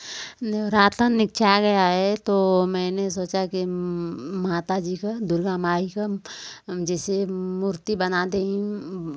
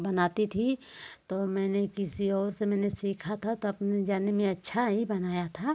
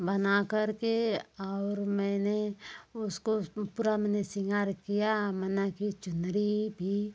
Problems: none marked